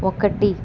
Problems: constant background noise